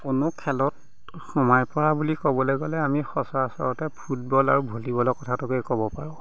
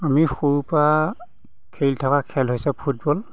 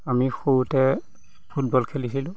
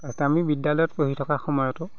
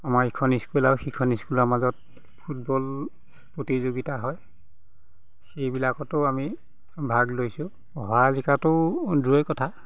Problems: background sounds at intervals